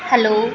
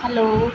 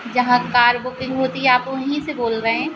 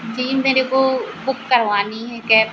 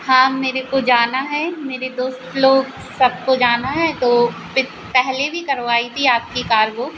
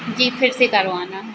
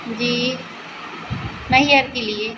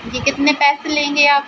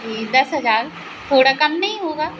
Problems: none marked